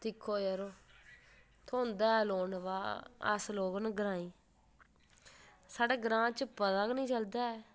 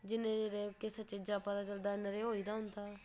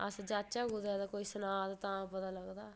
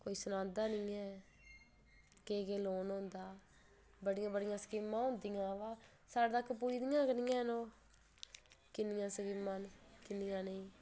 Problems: none marked